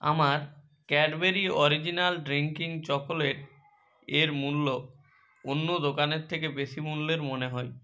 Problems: none marked